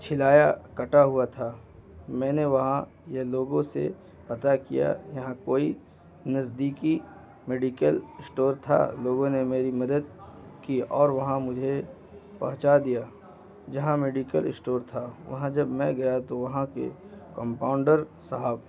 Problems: constant background noise